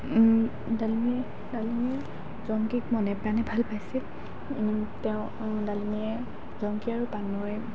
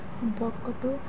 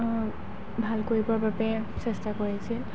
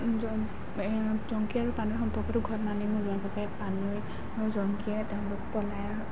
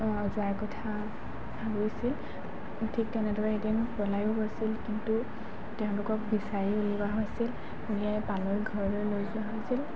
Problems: constant background noise